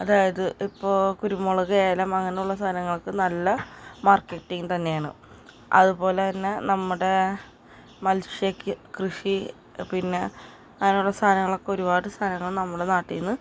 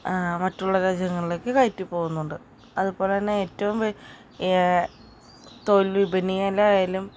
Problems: constant background noise